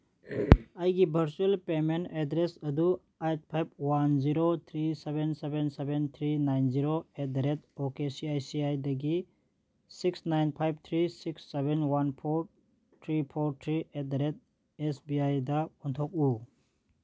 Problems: none marked